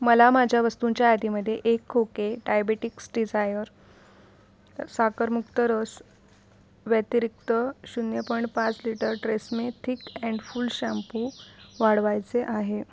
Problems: background sounds at intervals